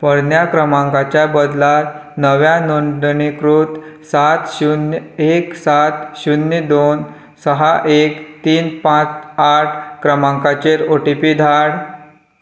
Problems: none marked